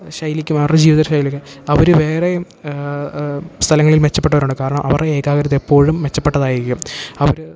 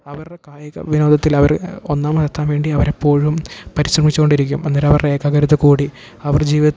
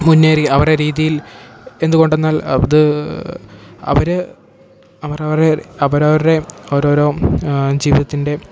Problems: background sounds at intervals